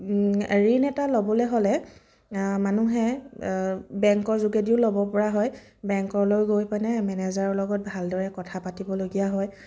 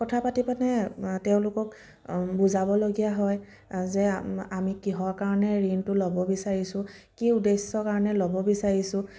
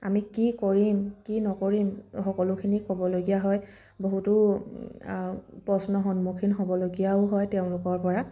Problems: background sounds at intervals